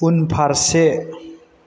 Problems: constant background noise